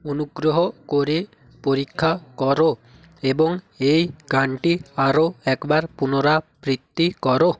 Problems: constant background noise